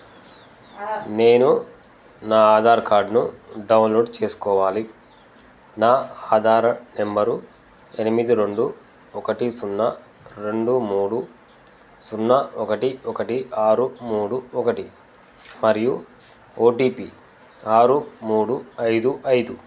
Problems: constant background noise